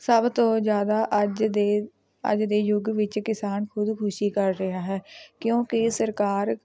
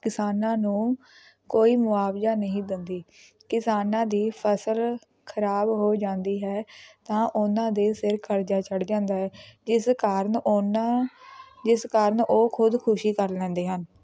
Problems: background sounds at intervals, continuous background conversations